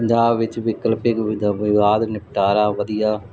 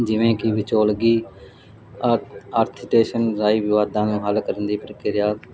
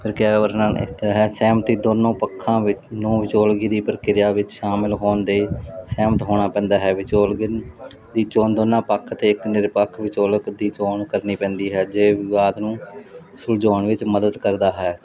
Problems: constant background noise